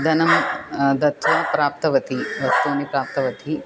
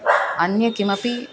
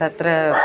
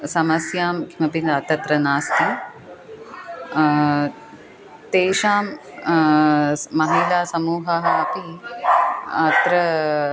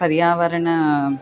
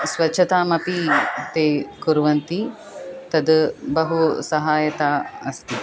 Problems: constant background noise